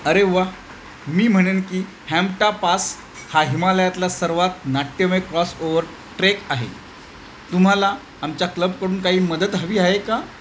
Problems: constant background noise